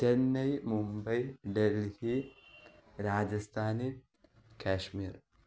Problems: low volume